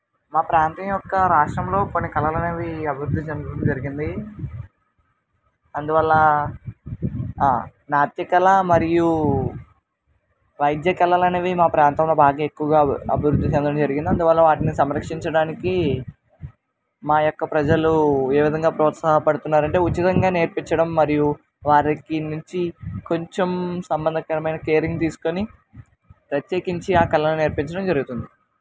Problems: constant background noise